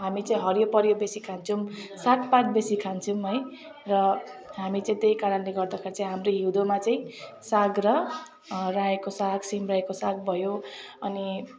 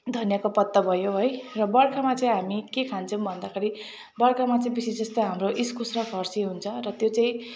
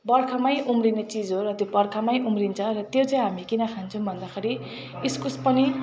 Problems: background sounds at intervals